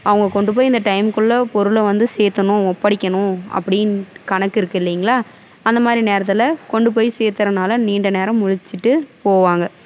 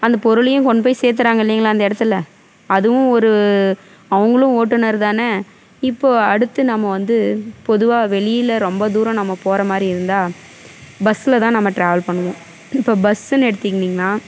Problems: none marked